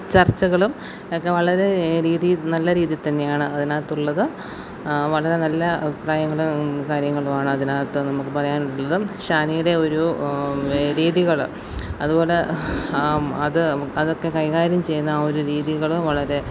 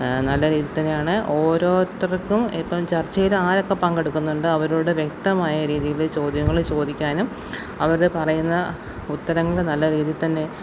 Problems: constant background noise